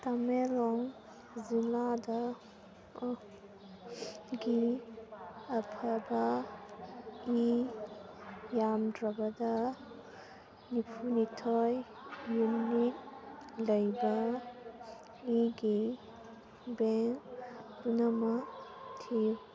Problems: constant background noise